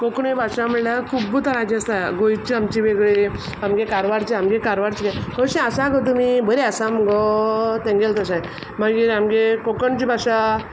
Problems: background sounds at intervals